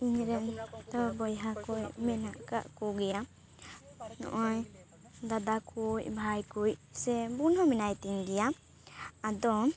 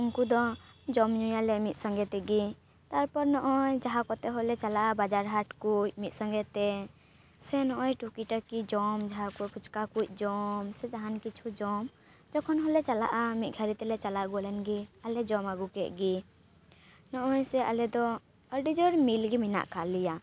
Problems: background sounds at intervals